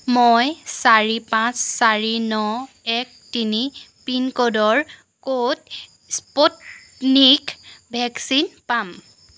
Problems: background sounds at intervals